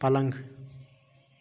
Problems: constant background noise